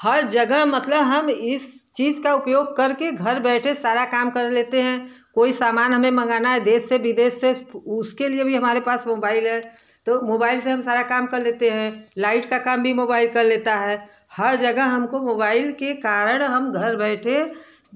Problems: constant background noise, background conversations at intervals